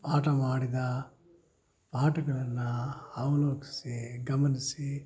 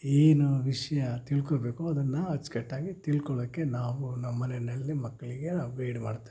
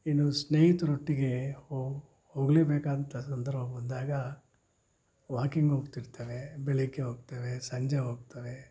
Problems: low volume